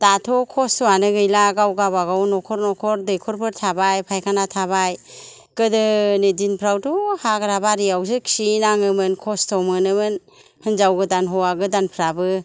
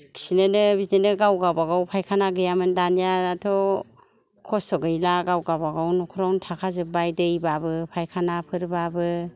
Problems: low volume